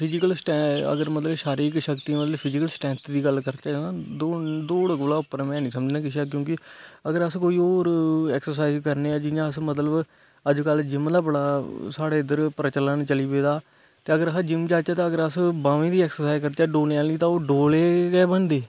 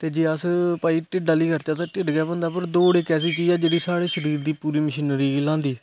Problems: constant background noise